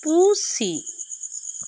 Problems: constant background noise